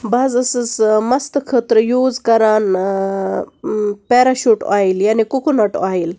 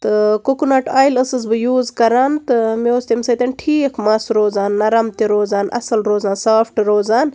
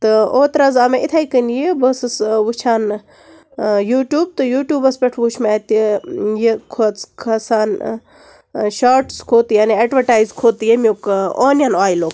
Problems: constant background noise